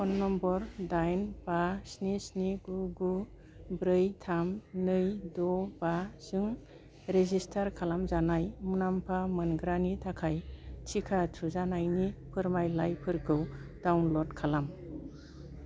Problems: low volume